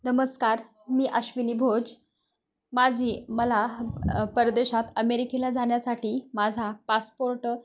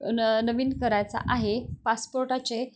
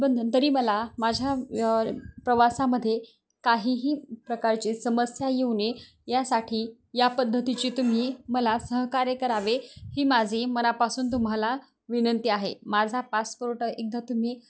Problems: none marked